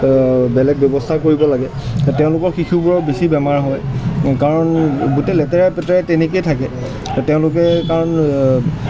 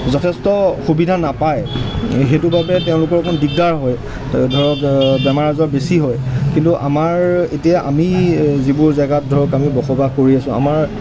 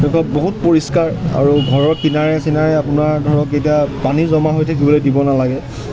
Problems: background sounds at intervals